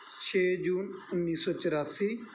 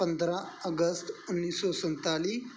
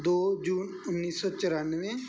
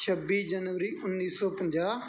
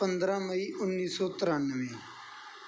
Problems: none marked